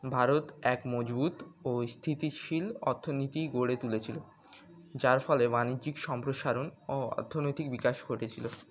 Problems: constant background noise, background conversations at intervals